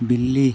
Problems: constant background noise